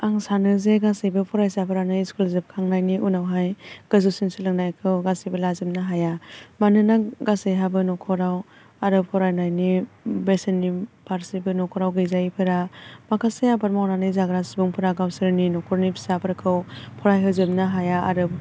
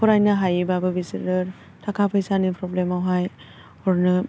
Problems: constant background noise